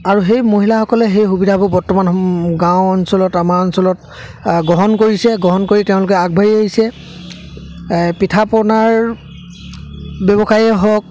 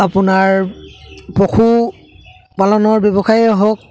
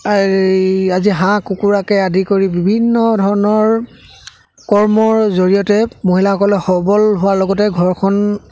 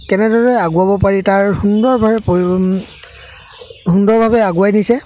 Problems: constant background noise, background conversations at intervals